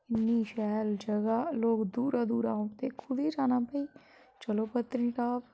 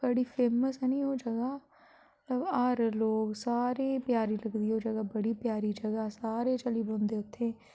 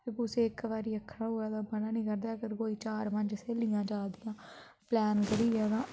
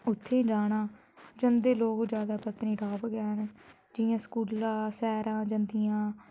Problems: constant background noise